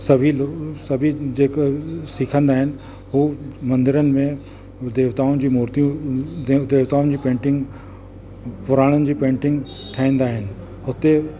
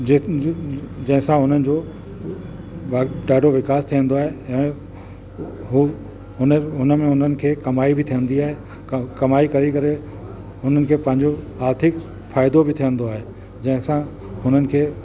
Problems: constant background noise, echo